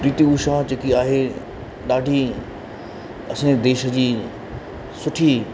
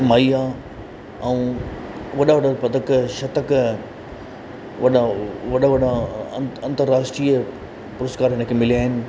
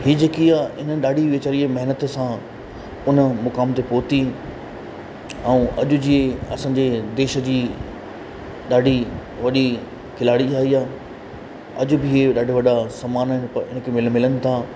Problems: constant background noise, echo